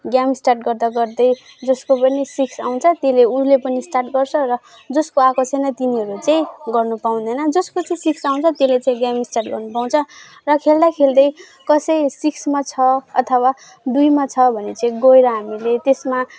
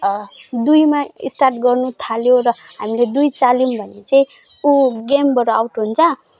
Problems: background sounds at intervals